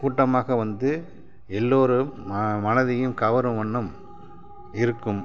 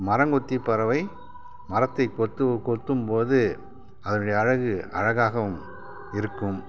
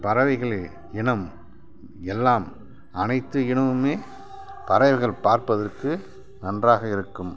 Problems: none marked